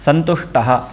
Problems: constant background noise